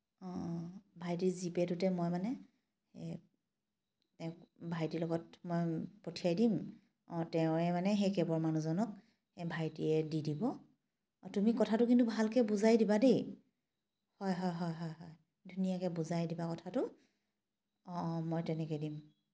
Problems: background sounds at intervals